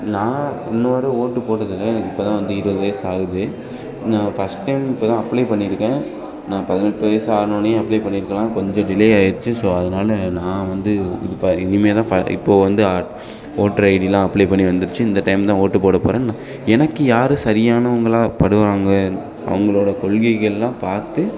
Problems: background sounds at intervals, background conversations at intervals